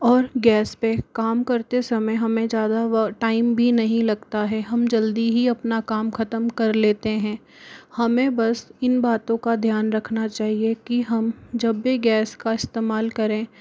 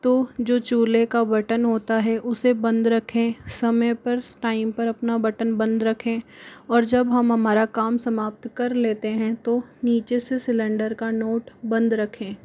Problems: constant background noise